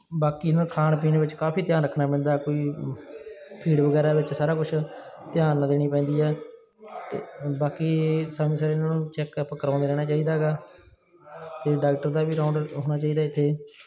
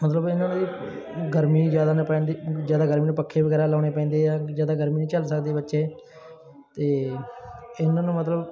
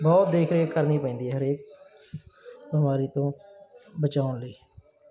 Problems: background sounds at intervals, background conversations at intervals